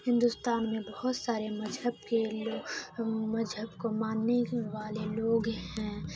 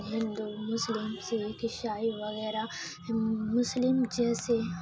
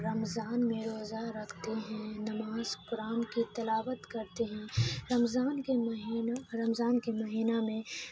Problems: constant background noise, low volume